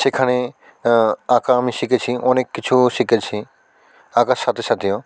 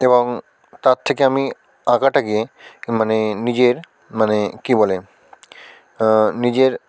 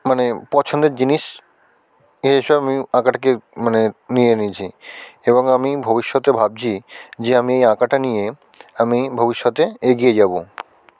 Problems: constant background noise